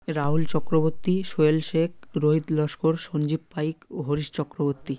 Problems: none marked